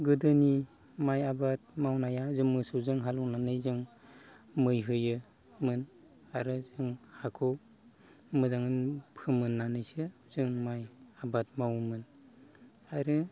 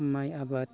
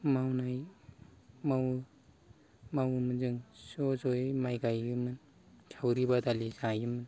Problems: none marked